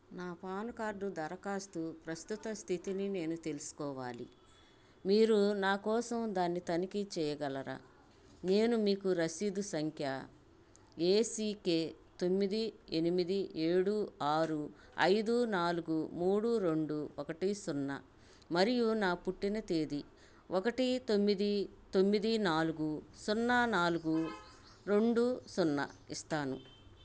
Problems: background sounds at intervals, low volume